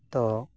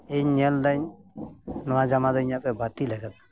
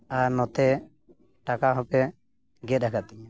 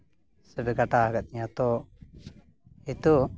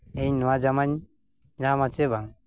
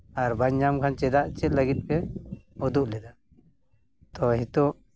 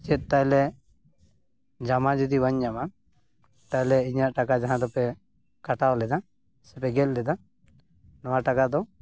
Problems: background sounds at intervals